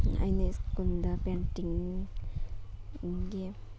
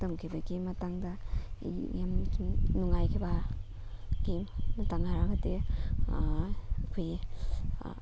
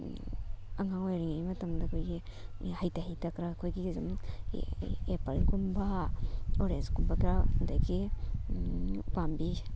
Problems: constant background noise